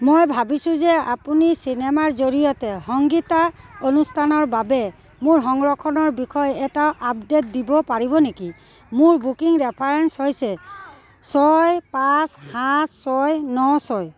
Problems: none marked